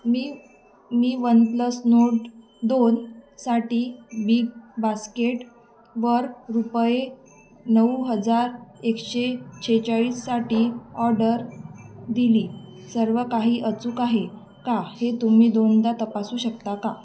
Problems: constant background noise, background conversations at intervals